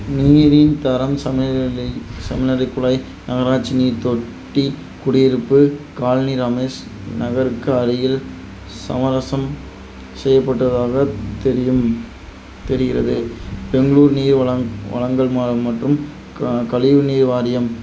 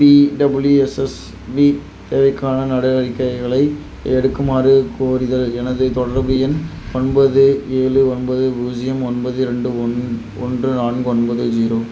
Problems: constant background noise